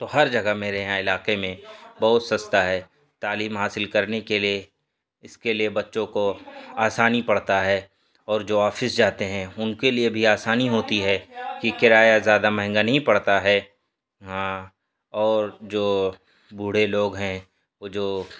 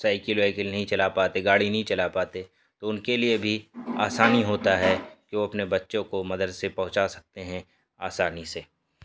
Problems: background sounds at intervals, background conversations at intervals